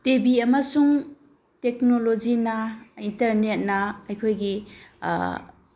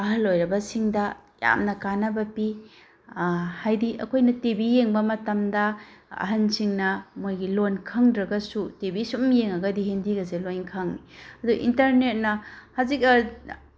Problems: constant background noise